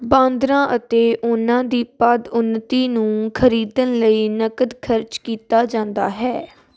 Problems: constant background noise